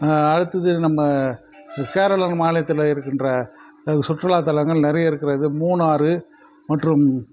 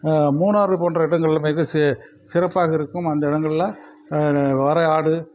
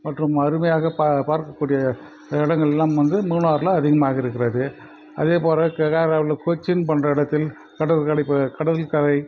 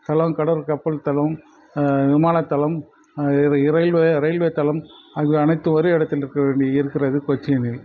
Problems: none marked